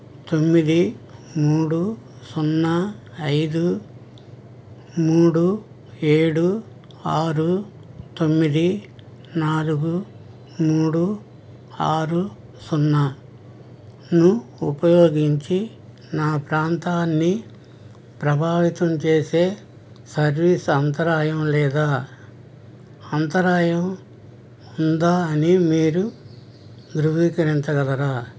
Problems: background sounds at intervals